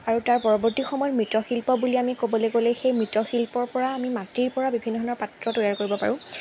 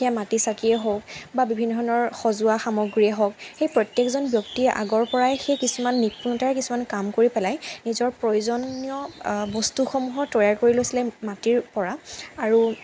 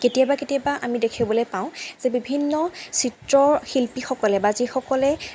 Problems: constant background noise